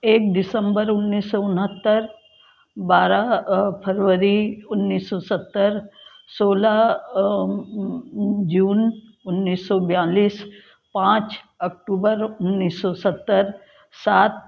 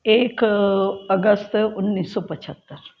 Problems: constant background noise